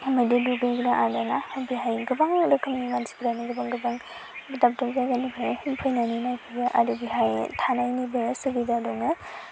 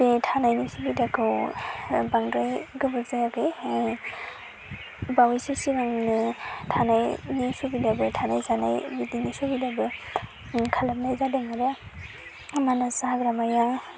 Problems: none marked